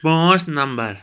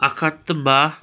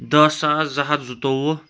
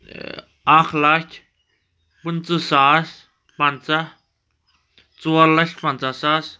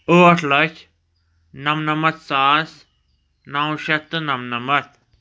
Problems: none marked